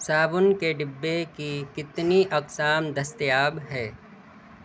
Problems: none marked